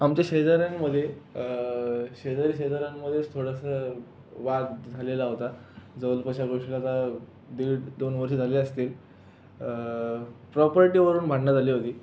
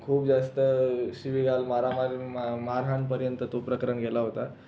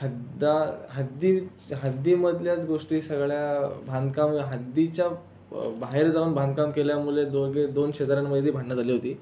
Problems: constant background noise